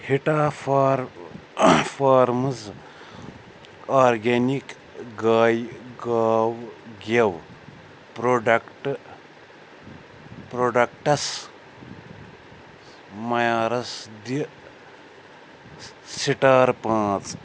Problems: background sounds at intervals